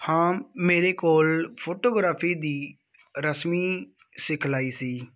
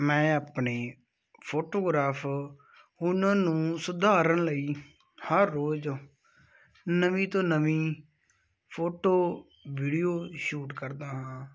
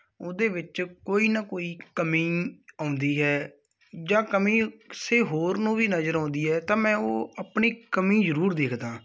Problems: none marked